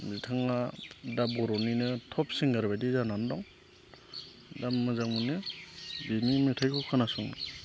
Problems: constant background noise